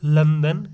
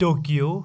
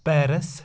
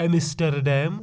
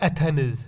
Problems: none marked